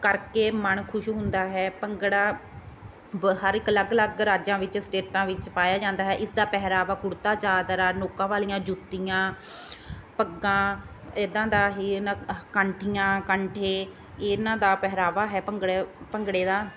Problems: constant background noise